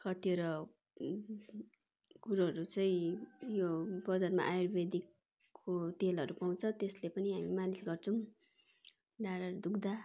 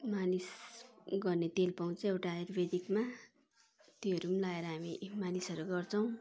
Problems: constant background noise, continuous background conversations